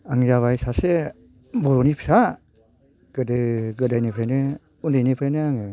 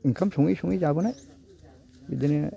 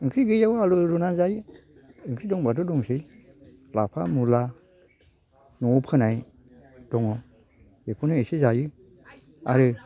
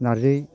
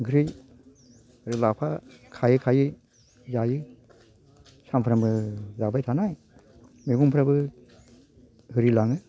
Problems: low volume